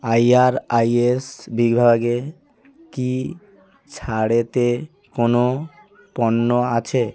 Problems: continuous background conversations